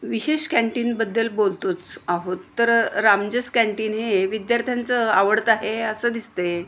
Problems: constant background noise